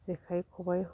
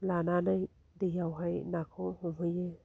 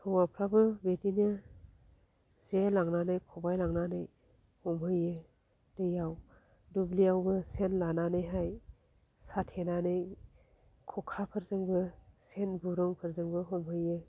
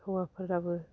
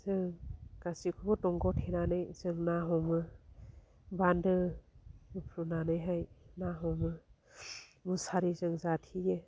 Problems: low volume